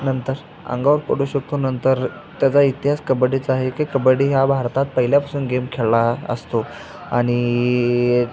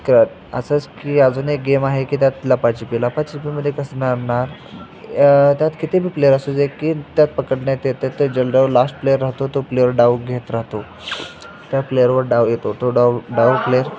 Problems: constant background noise, continuous background conversations